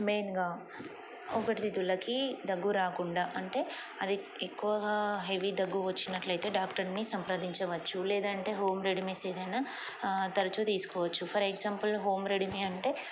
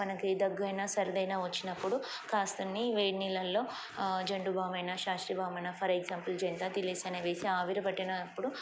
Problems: constant background noise